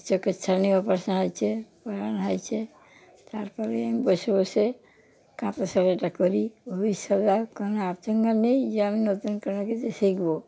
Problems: background sounds at intervals